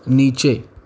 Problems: none marked